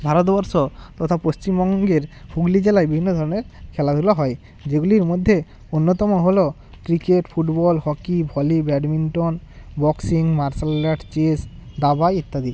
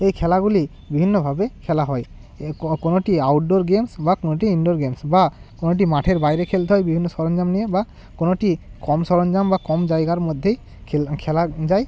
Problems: constant background noise